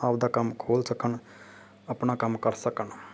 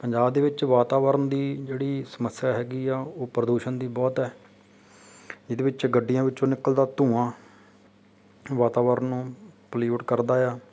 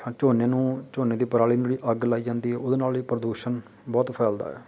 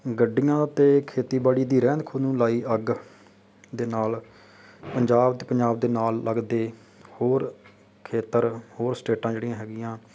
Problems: background sounds at intervals